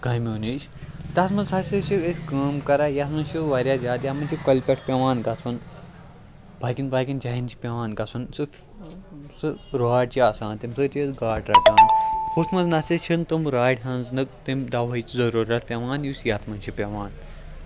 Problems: constant background noise